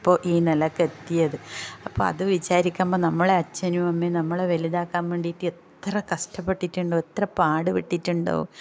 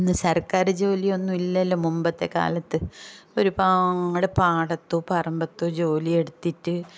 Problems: none marked